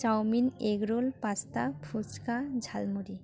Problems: background sounds at intervals